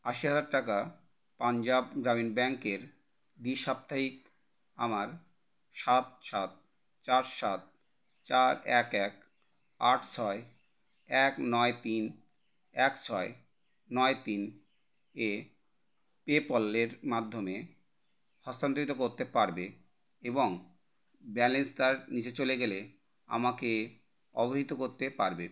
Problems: none marked